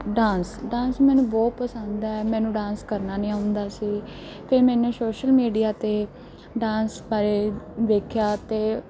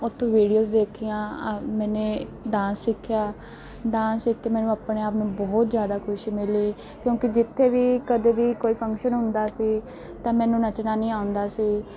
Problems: none marked